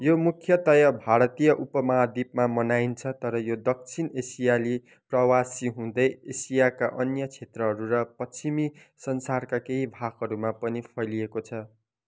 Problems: none marked